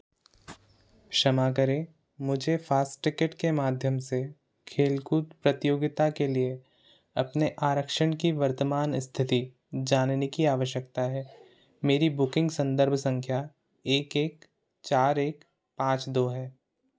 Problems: constant background noise